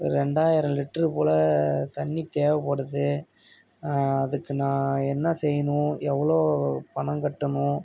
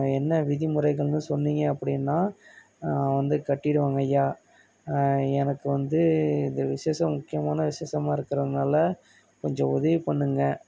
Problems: none marked